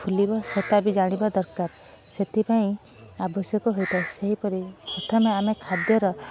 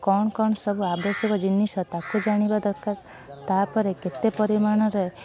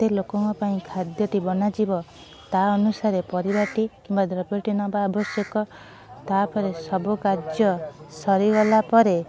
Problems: background sounds at intervals